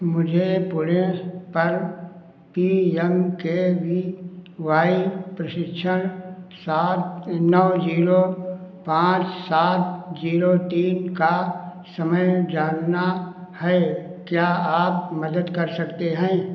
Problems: echo